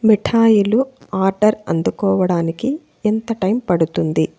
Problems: constant background noise